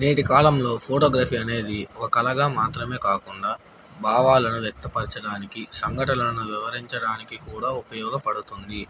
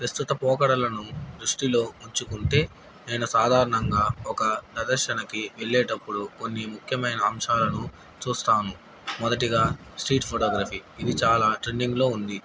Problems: constant background noise